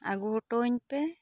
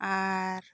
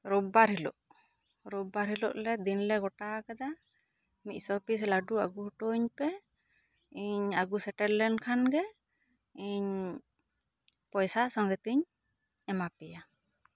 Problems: none marked